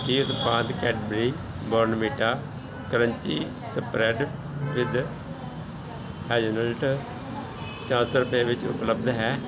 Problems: continuous background conversations